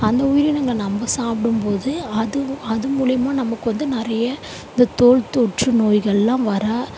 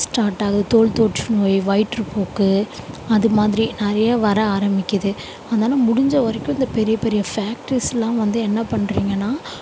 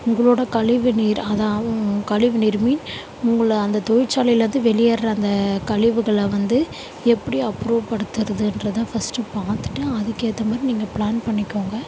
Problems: none marked